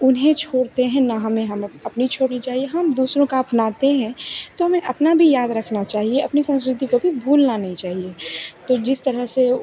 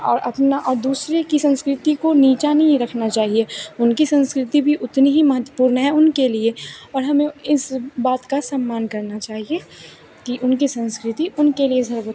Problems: none marked